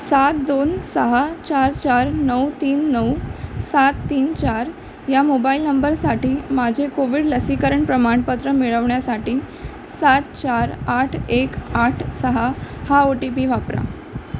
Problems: constant background noise